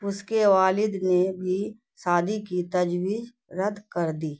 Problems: none marked